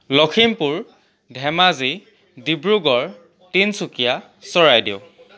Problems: none marked